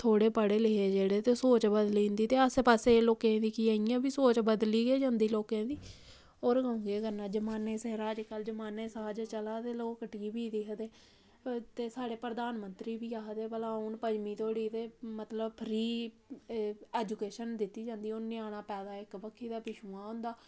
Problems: background sounds at intervals